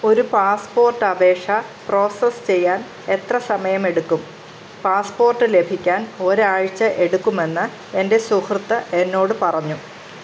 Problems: constant background noise